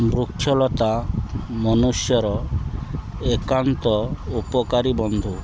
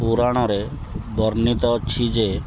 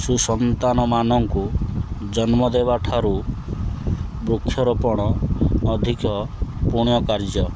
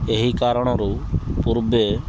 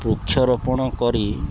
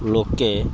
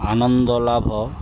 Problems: constant background noise